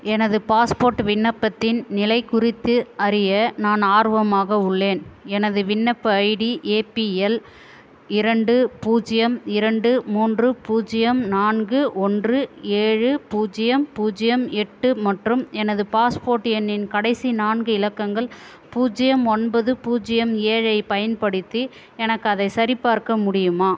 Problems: constant background noise